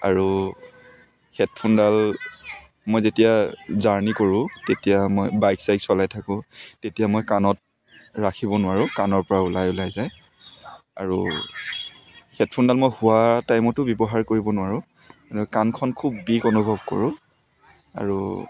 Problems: continuous background conversations